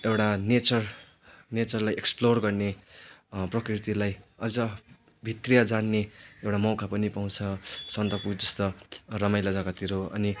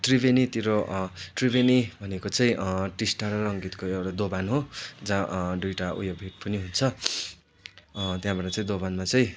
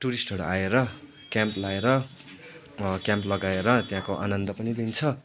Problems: none marked